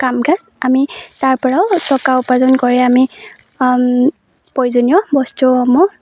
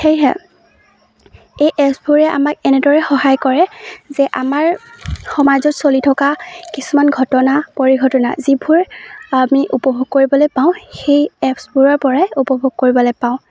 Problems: none marked